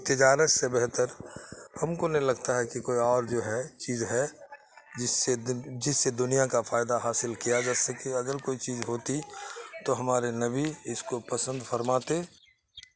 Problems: constant background noise